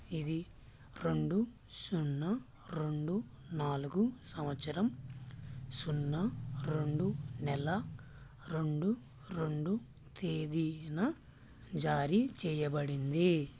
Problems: constant background noise, low volume